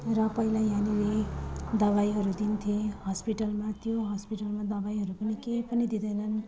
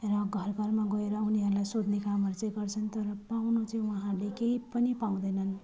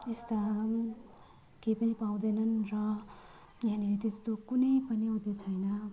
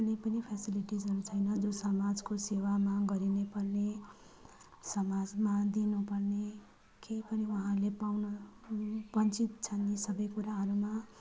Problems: low volume